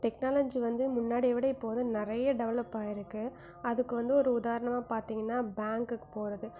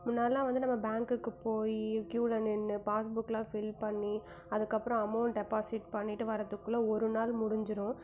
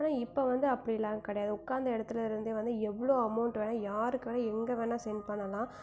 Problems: background sounds at intervals